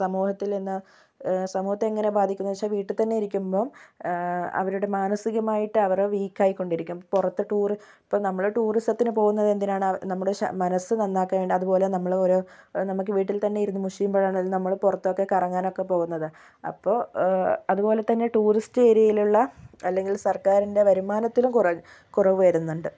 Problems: none marked